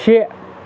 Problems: constant background noise